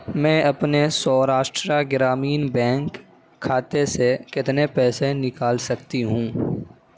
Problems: constant background noise